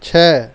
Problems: none marked